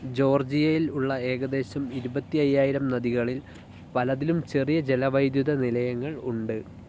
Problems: low volume